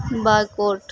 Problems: constant background noise